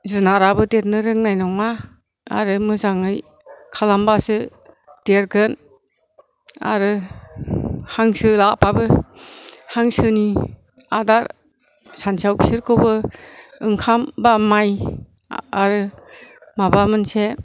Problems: low volume